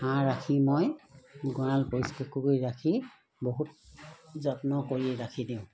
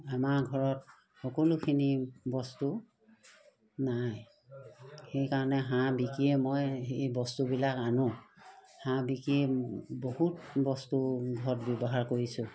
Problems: none marked